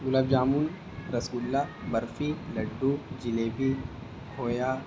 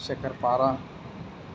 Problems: constant background noise